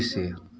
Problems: none marked